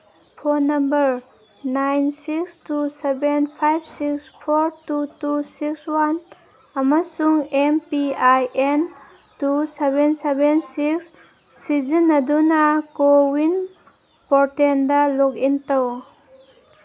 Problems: background sounds at intervals